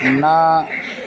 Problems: constant background noise